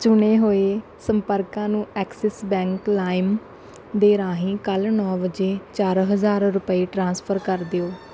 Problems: background sounds at intervals